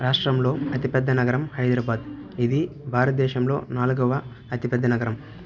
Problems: background sounds at intervals, background conversations at intervals